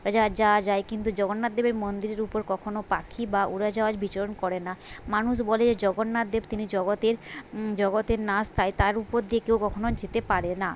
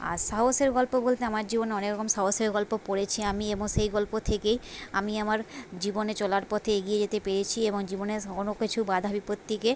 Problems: none marked